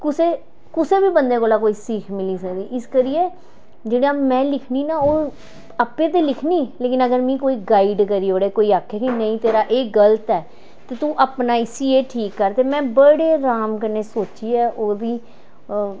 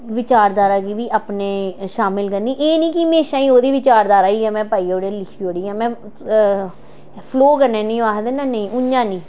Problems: none marked